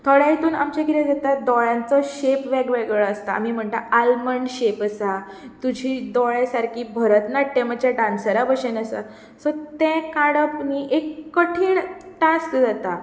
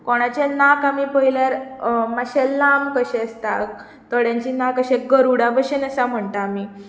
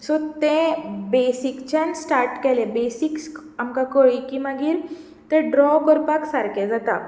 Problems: none marked